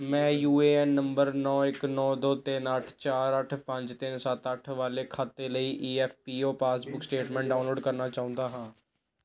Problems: background conversations at intervals